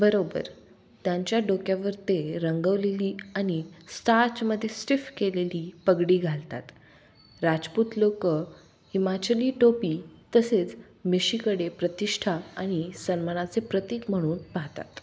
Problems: background sounds at intervals